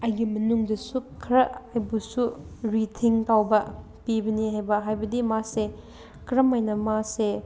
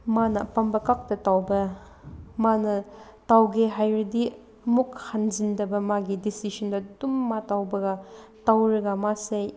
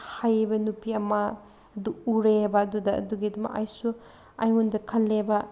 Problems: none marked